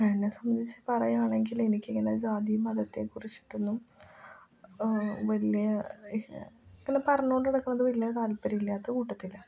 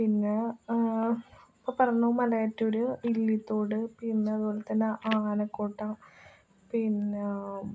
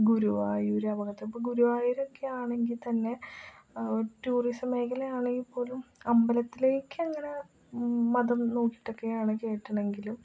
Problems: low volume